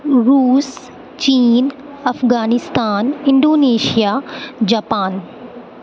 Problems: constant background noise